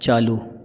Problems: none marked